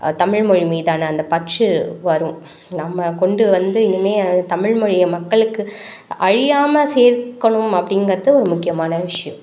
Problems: none marked